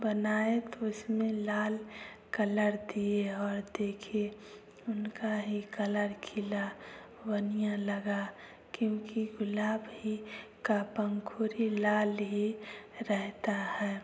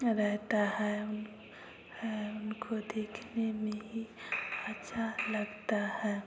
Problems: constant background noise, continuous background conversations